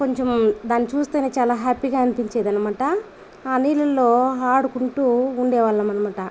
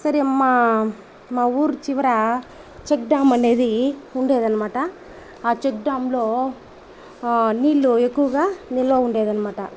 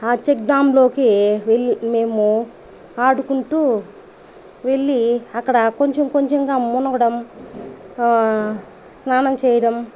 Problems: constant background noise